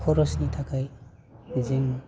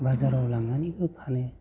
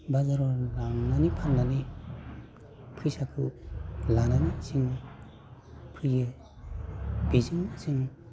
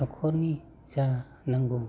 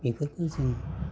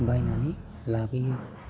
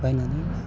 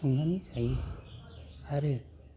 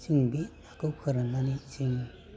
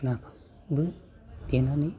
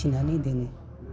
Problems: constant background noise